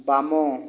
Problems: none marked